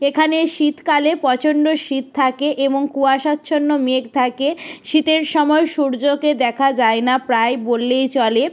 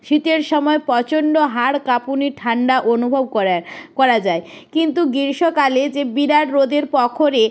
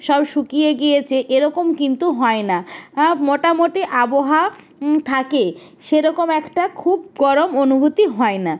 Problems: background sounds at intervals